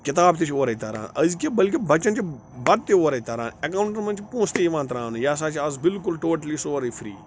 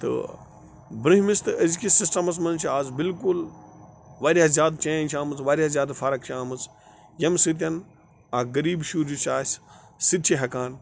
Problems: constant background noise